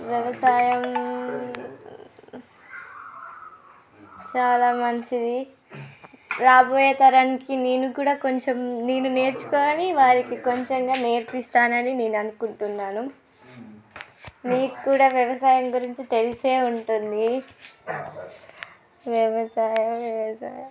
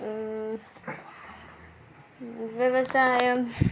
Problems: background sounds at intervals, background conversations at intervals